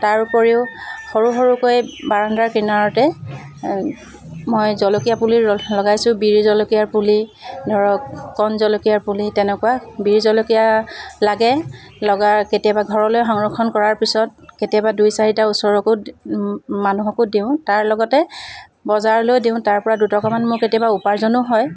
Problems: background sounds at intervals